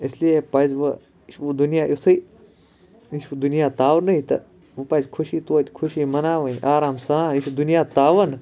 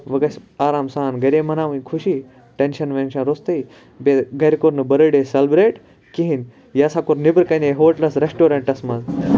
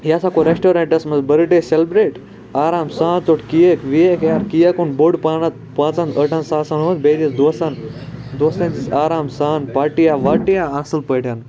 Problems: none marked